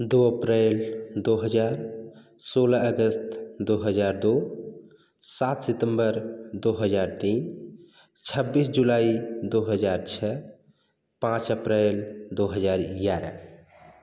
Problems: none marked